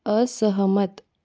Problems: none marked